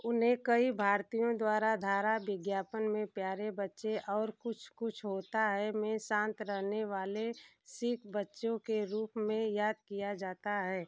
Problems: constant background noise